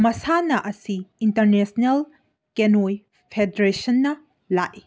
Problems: background sounds at intervals